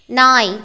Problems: none marked